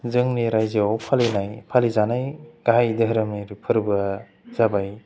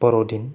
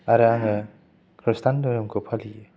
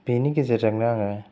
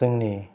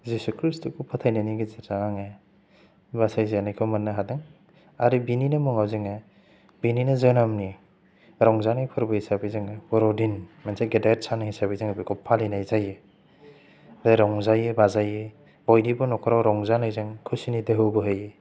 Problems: low volume